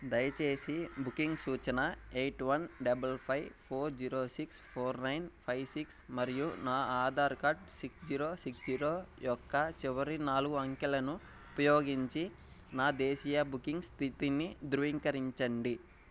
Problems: background sounds at intervals